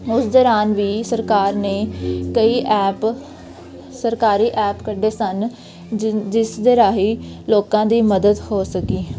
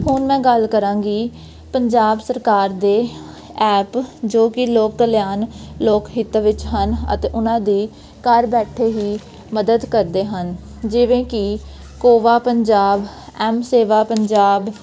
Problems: none marked